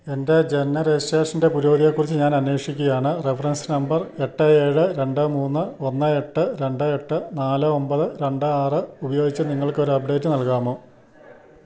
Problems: none marked